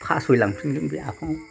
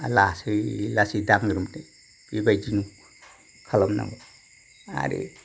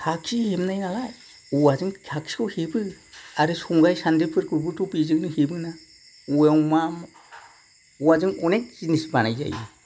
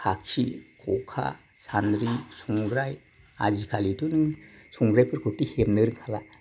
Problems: none marked